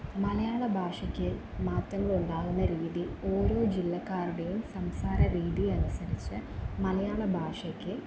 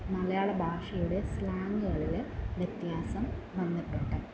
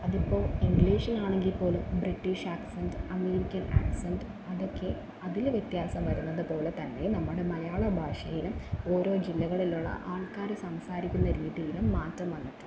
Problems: background sounds at intervals, low volume